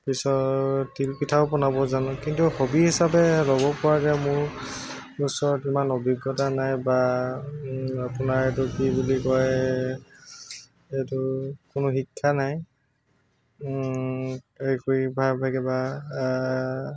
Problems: constant background noise, background conversations at intervals